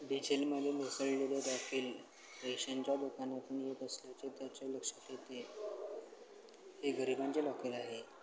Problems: constant background noise, low volume